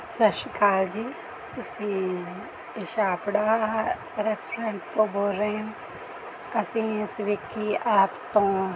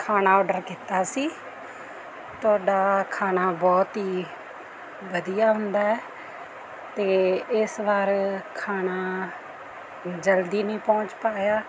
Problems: none marked